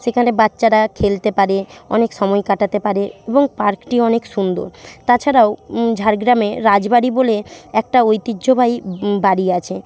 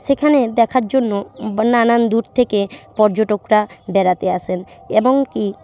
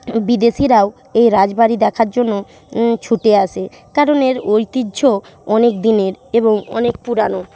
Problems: constant background noise